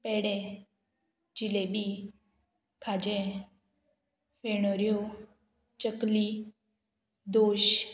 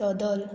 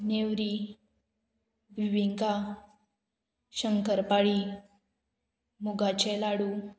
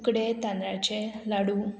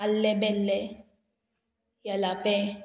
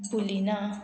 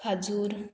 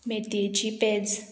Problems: constant background noise